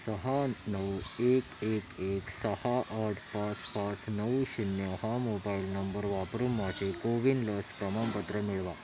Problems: none marked